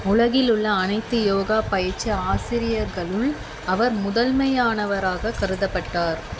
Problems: constant background noise